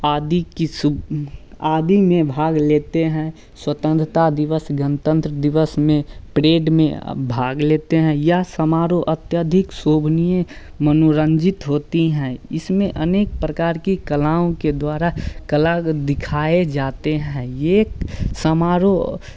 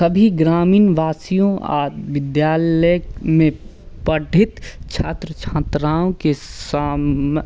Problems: none marked